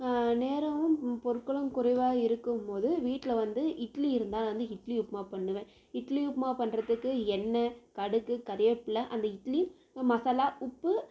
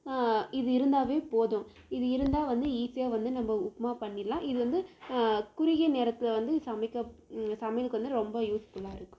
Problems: none marked